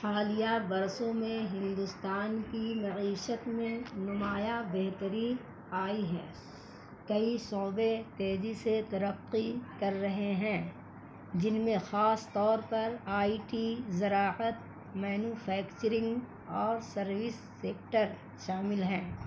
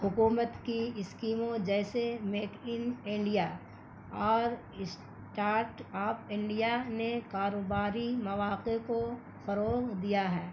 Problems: constant background noise